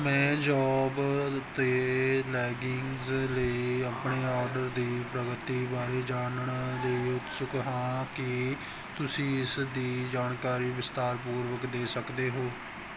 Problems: none marked